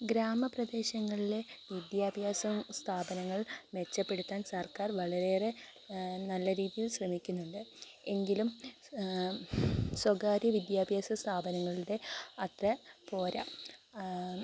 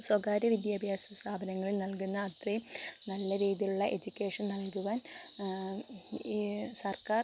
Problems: constant background noise